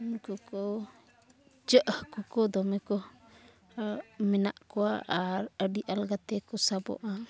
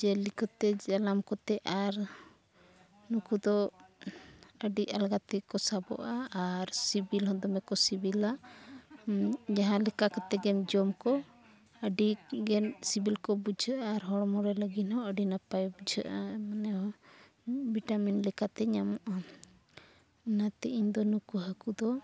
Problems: background sounds at intervals, low volume